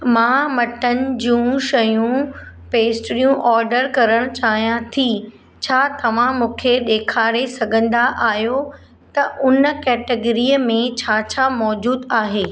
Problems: none marked